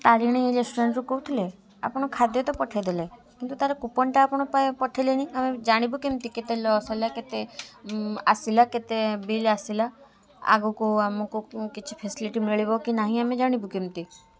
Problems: continuous background conversations